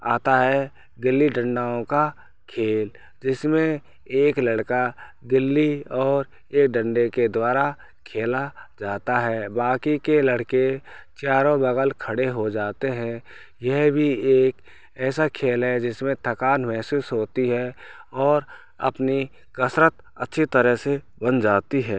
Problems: none marked